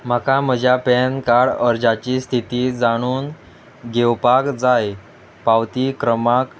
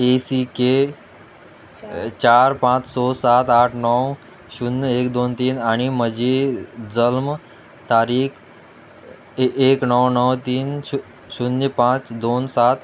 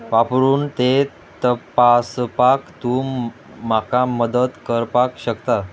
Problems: constant background noise